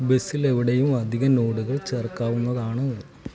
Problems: constant background noise, low volume